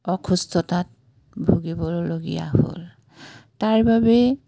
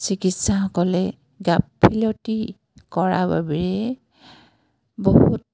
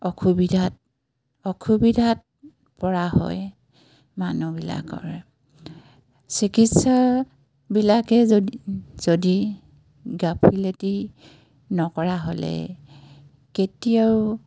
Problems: background sounds at intervals